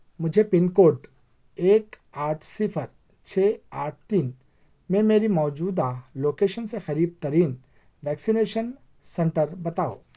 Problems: none marked